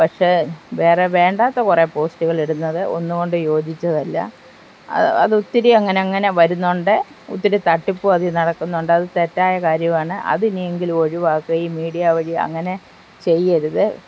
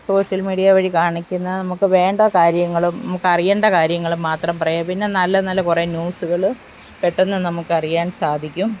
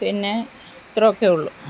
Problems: constant background noise